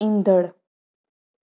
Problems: none marked